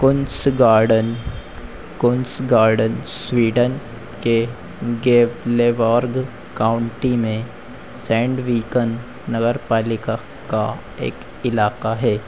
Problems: constant background noise